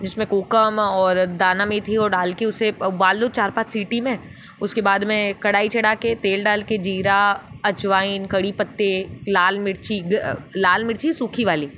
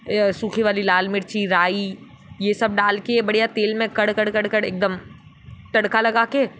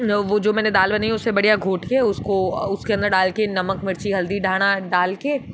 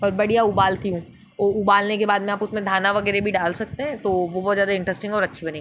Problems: background sounds at intervals